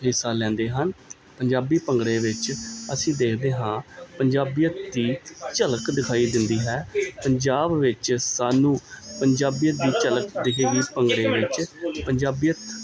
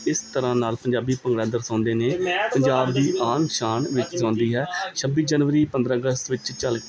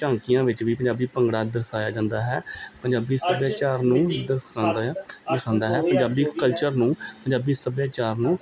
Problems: background sounds at intervals, continuous background conversations